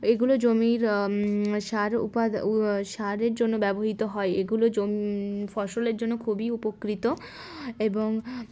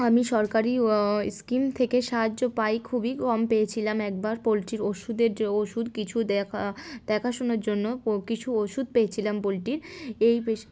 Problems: background sounds at intervals